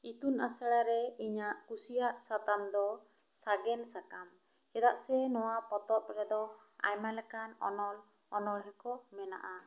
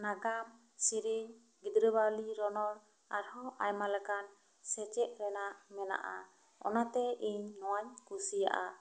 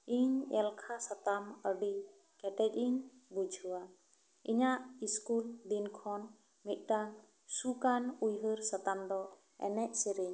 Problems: none marked